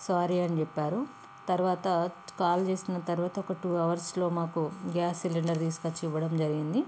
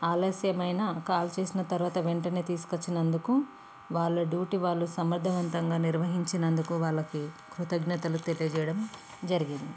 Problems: constant background noise